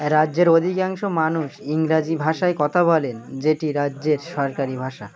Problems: none marked